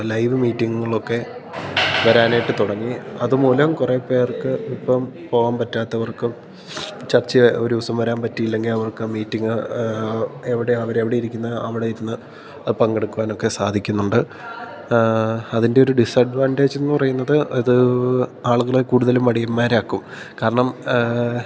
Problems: background sounds at intervals